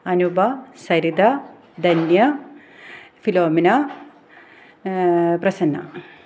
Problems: background sounds at intervals